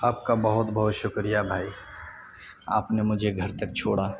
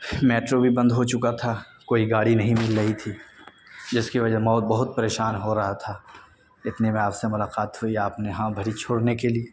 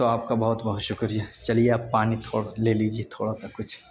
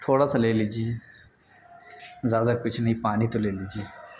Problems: constant background noise